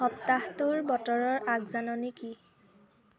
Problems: none marked